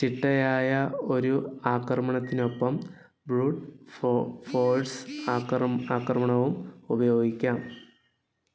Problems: background sounds at intervals